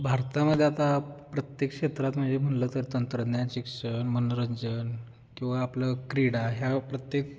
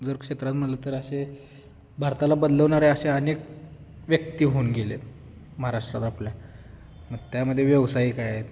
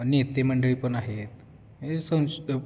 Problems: constant background noise